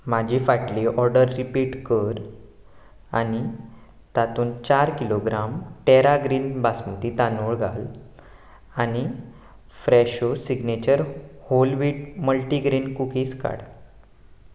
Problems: background sounds at intervals